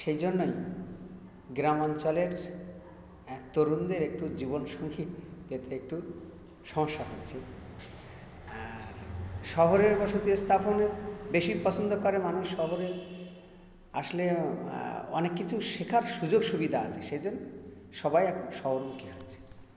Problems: constant background noise